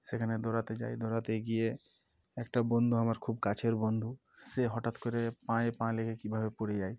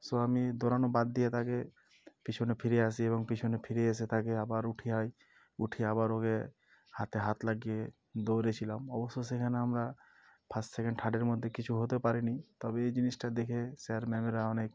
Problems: background sounds at intervals